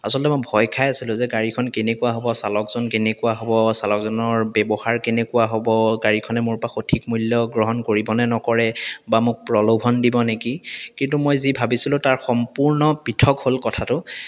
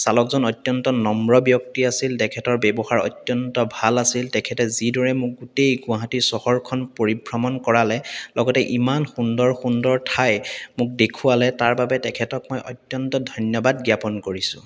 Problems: none marked